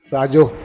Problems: constant background noise